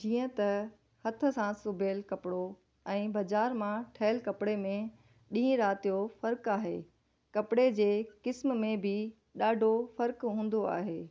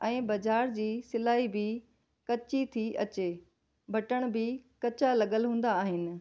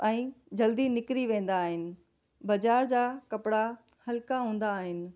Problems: none marked